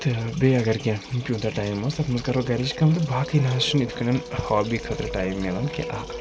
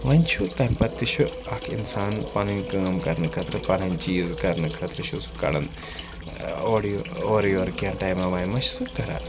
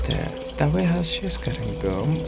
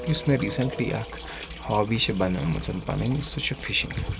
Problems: constant background noise, low volume